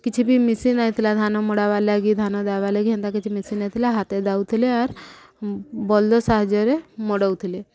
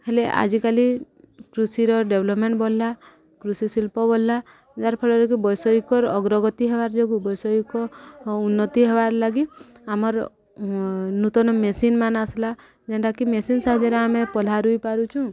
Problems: background conversations at intervals